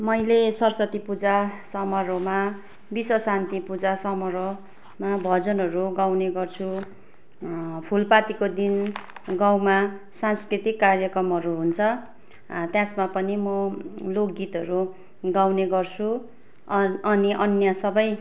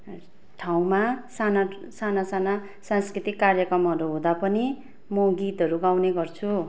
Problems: none marked